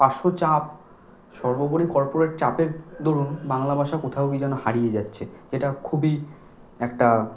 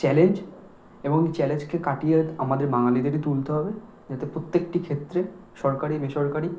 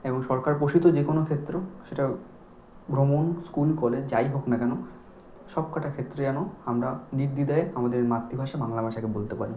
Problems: none marked